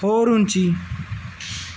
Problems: none marked